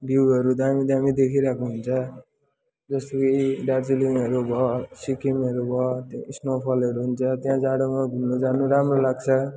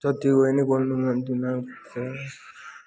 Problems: continuous background conversations